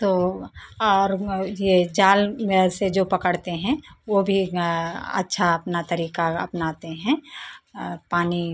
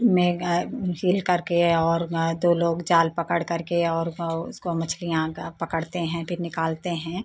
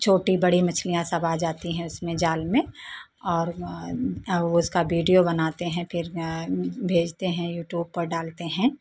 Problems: none marked